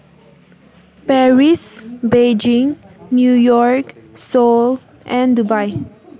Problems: constant background noise